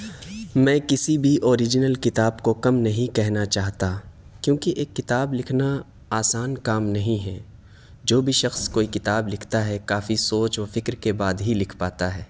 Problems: none marked